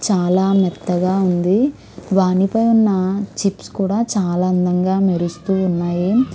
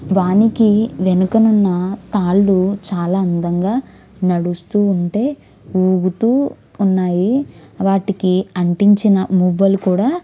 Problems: background sounds at intervals, background conversations at intervals